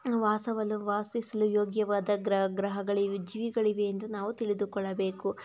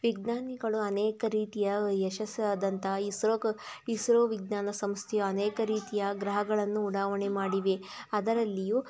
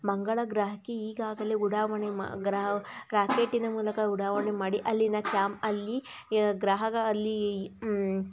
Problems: background sounds at intervals